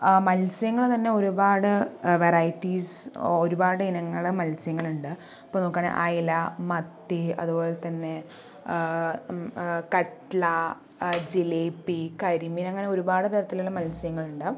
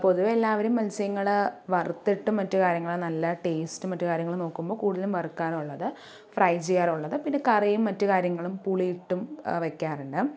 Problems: none marked